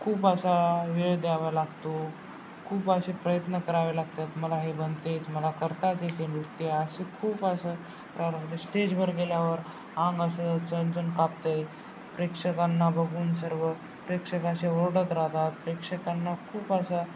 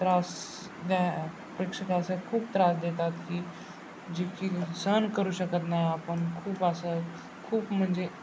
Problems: constant background noise, background conversations at intervals